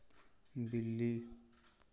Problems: none marked